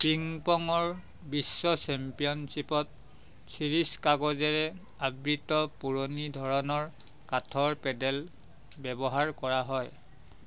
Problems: none marked